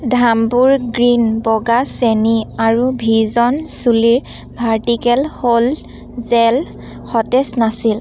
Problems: none marked